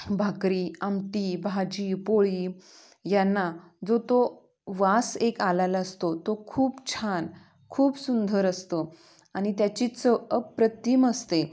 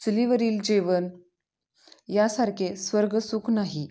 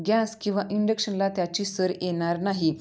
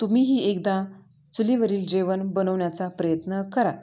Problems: background sounds at intervals, background conversations at intervals, echo